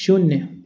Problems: background sounds at intervals